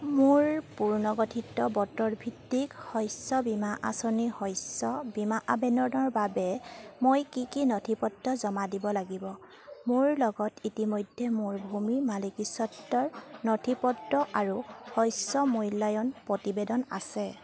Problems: none marked